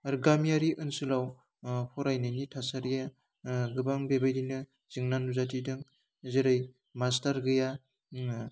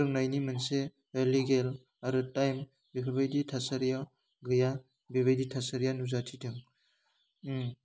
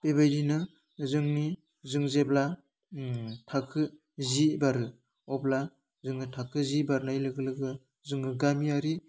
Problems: constant background noise